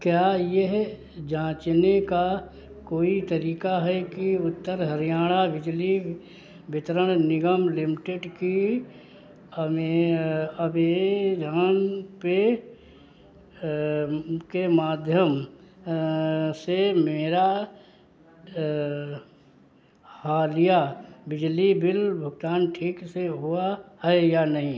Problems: constant background noise